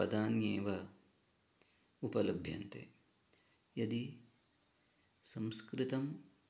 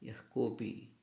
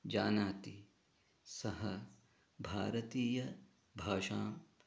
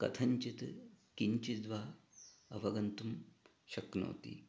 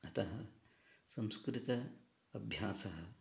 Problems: background conversations at intervals, low volume